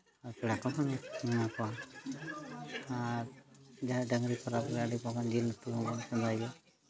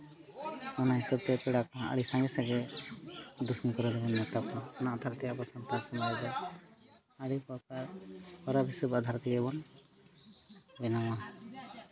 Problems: continuous background conversations